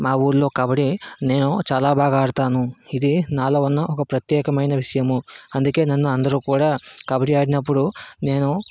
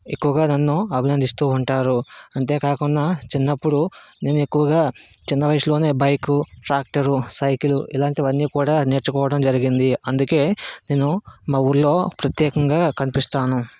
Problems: background sounds at intervals